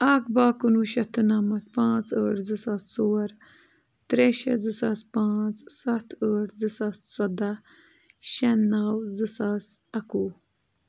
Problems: constant background noise